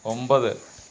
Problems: constant background noise